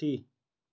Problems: none marked